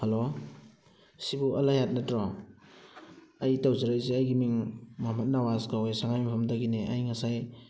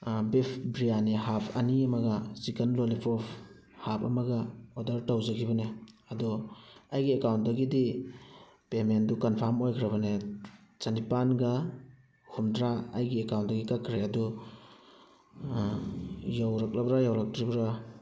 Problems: background sounds at intervals